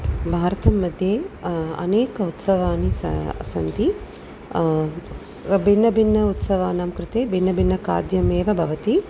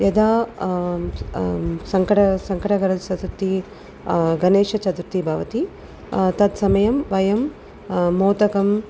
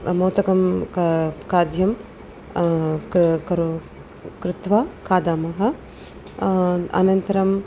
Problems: none marked